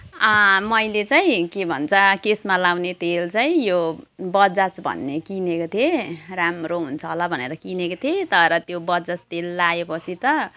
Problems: constant background noise